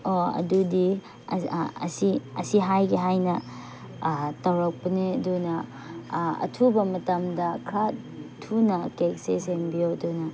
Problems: background sounds at intervals